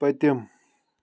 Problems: none marked